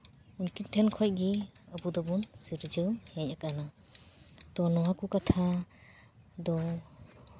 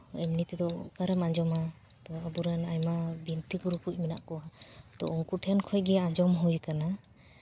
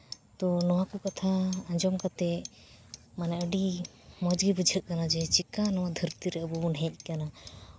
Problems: background sounds at intervals, background conversations at intervals